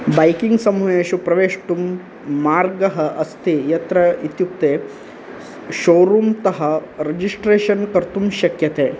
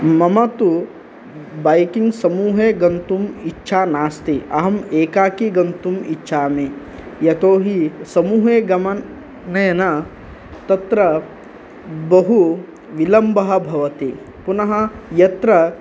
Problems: none marked